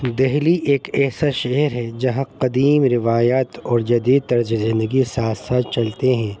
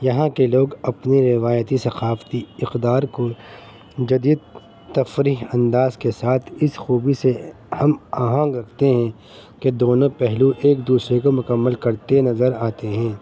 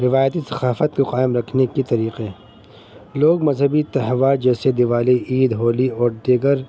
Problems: constant background noise